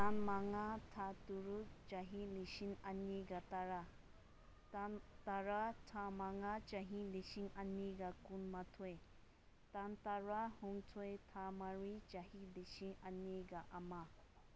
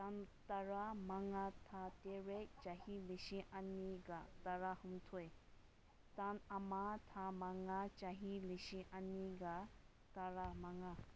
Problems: background sounds at intervals